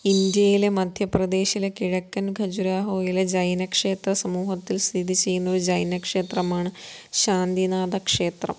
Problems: none marked